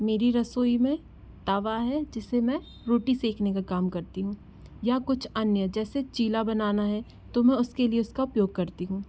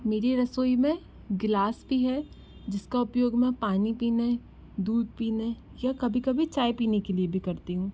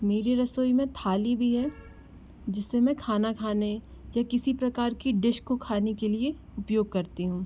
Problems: constant background noise